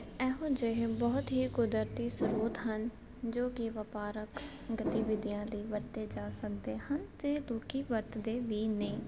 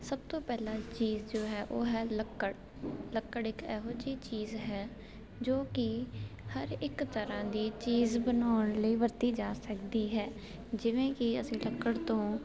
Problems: constant background noise